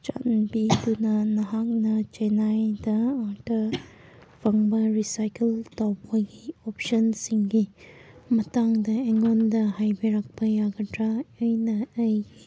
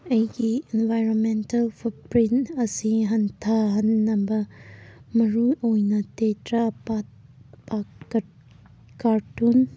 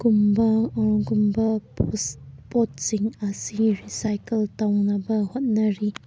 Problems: background sounds at intervals